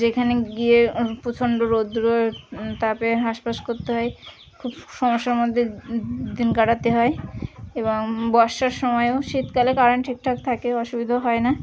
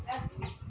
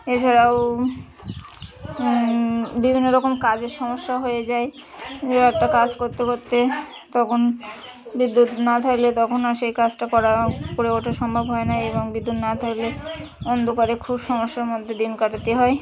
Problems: constant background noise, continuous background conversations